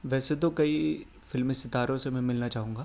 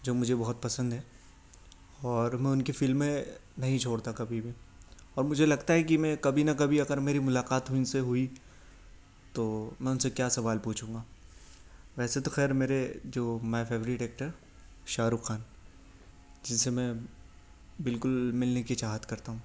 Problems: none marked